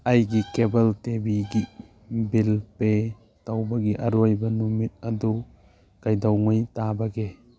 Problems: none marked